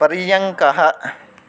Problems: constant background noise